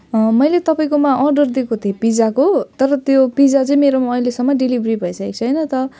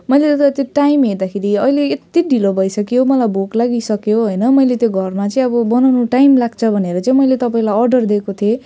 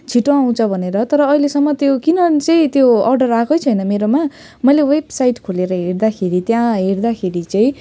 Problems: none marked